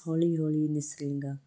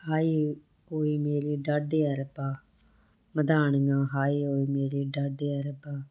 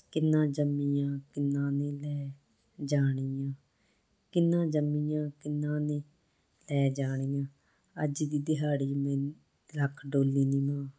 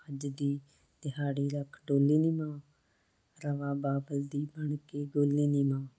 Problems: constant background noise